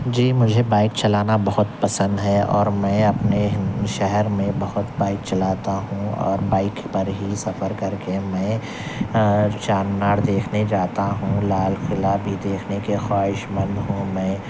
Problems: constant background noise, low volume